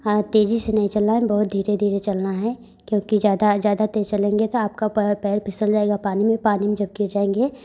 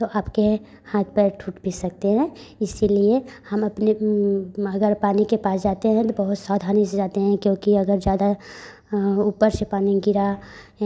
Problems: constant background noise